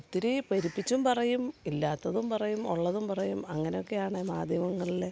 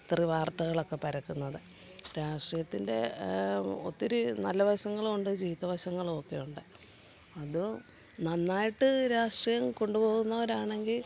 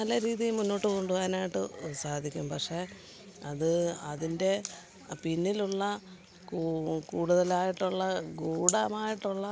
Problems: background sounds at intervals